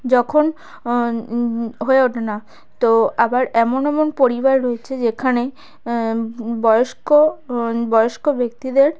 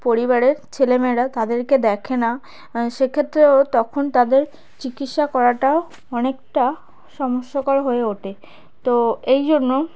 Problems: background sounds at intervals, background conversations at intervals